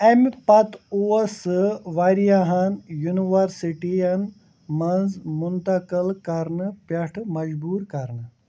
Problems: constant background noise